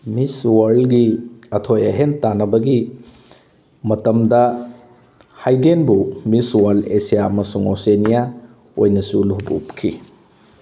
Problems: background sounds at intervals